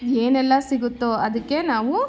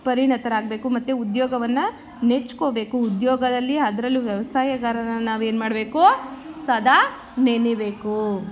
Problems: background sounds at intervals